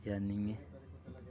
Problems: continuous background conversations